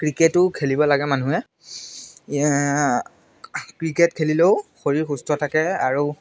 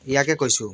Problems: constant background noise